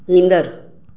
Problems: echo